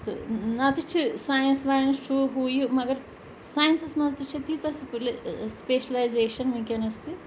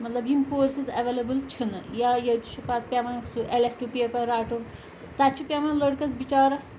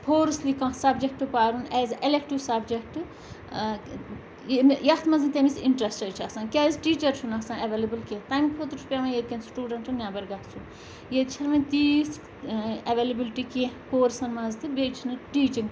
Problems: constant background noise